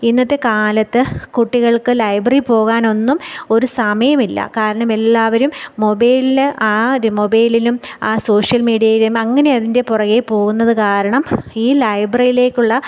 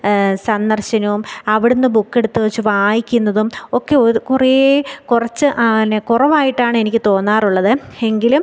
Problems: none marked